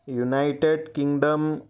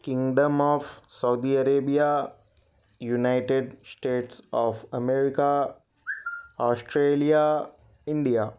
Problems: none marked